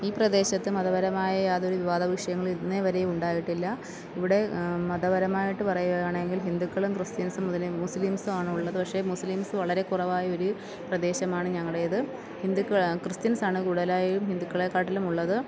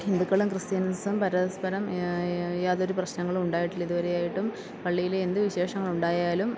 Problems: background sounds at intervals